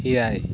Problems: constant background noise